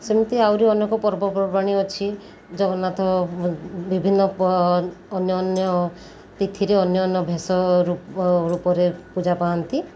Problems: continuous background conversations